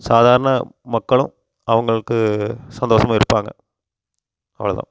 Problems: constant background noise